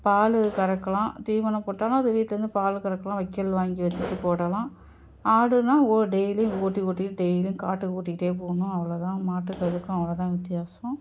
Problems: background sounds at intervals